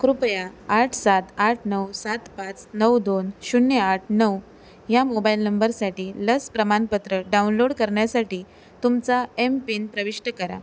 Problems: background sounds at intervals